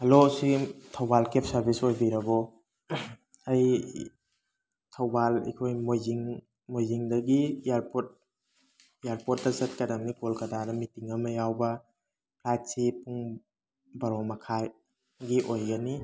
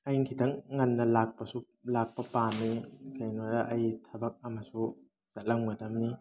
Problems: background sounds at intervals